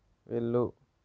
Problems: low volume